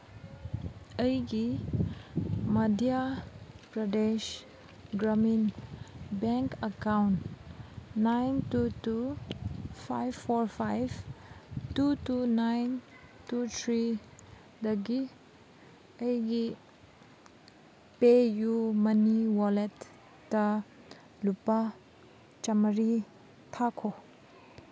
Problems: none marked